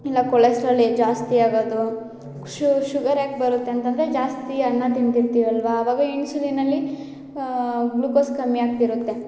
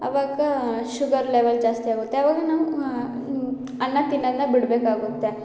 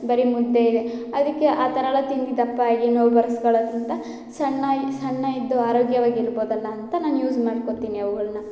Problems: none marked